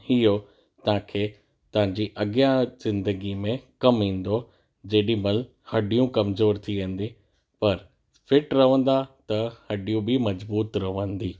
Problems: none marked